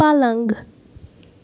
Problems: background sounds at intervals